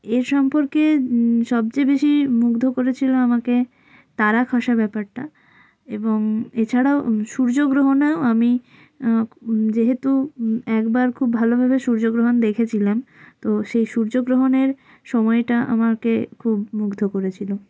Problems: background sounds at intervals